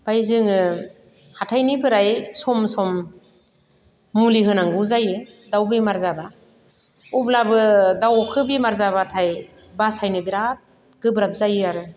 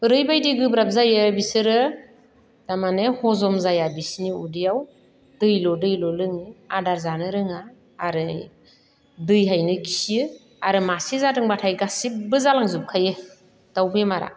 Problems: none marked